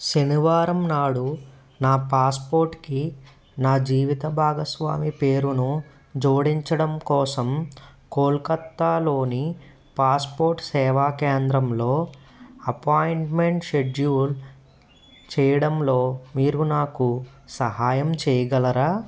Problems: background sounds at intervals